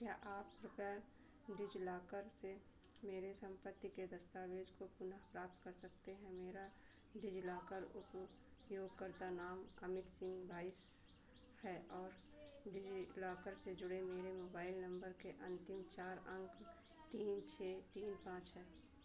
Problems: constant background noise, low volume